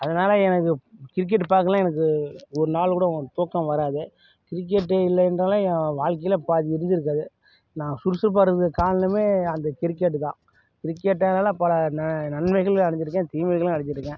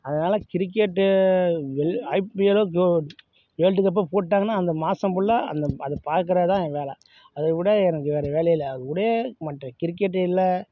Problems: none marked